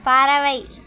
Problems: none marked